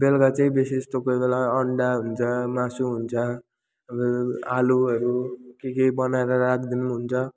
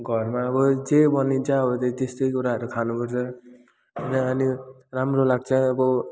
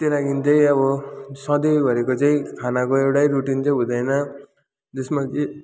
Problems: none marked